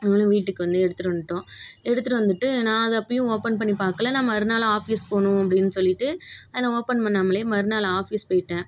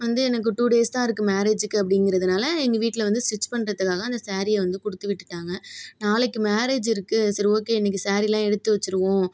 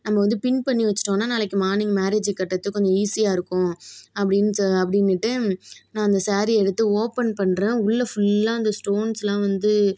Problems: none marked